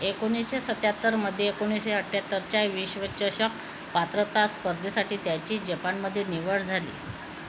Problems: constant background noise, echo